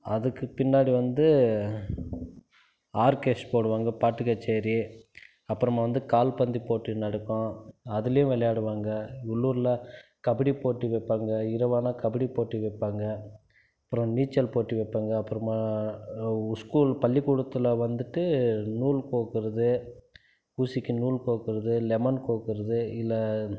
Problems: none marked